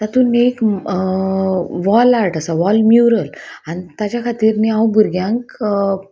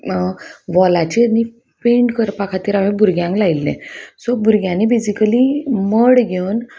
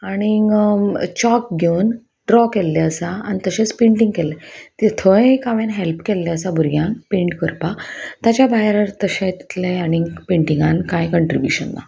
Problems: none marked